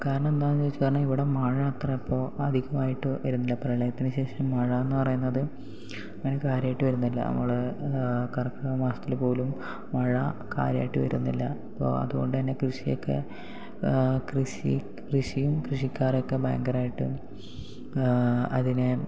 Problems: low volume